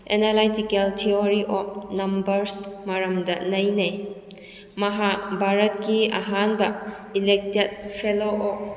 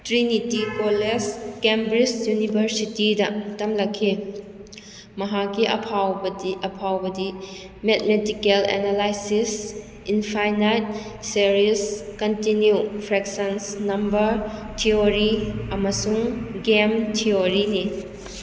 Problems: none marked